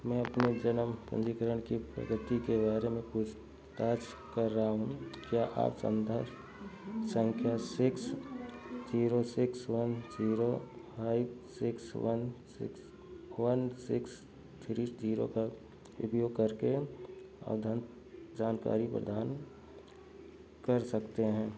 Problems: constant background noise